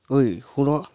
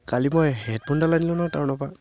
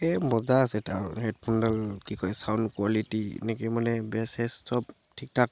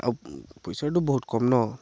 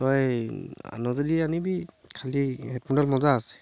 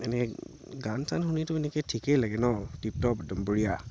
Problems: constant background noise